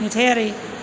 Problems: constant background noise